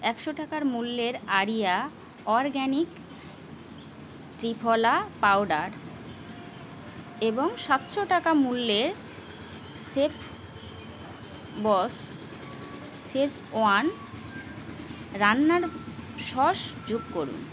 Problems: none marked